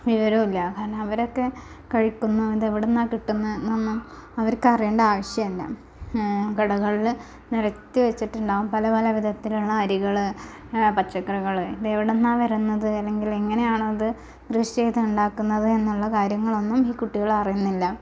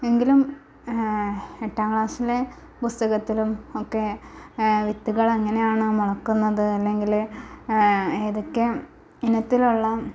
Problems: constant background noise